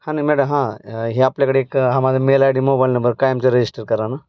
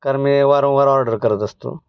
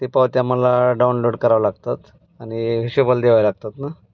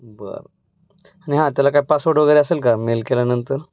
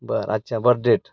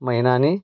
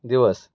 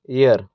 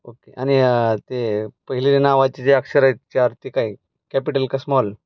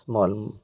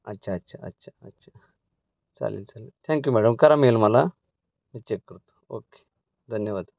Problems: none marked